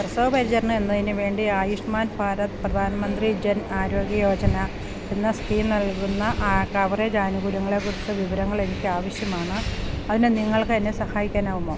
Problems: none marked